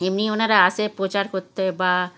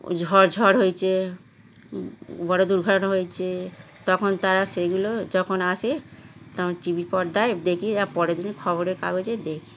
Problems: constant background noise, continuous background conversations